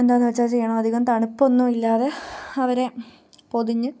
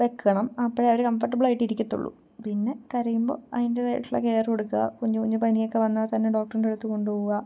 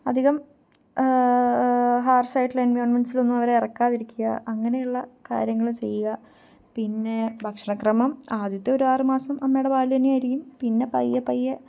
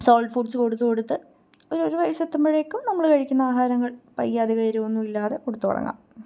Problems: low volume